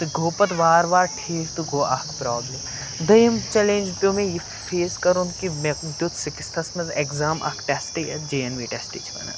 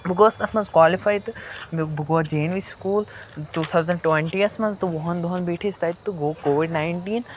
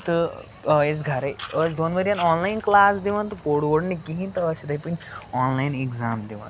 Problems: constant background noise